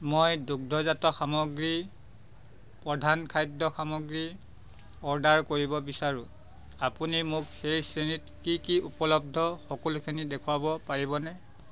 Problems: background sounds at intervals